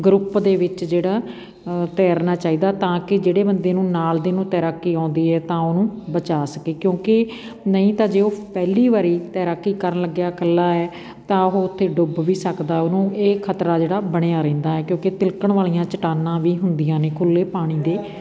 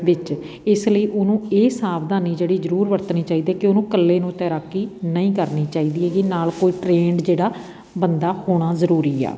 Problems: background sounds at intervals